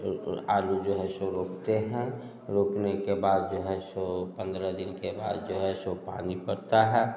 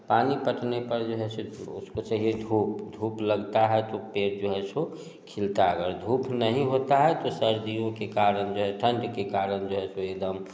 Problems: none marked